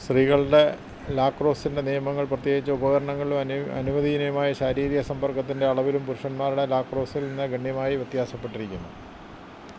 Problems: constant background noise